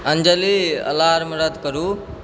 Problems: background sounds at intervals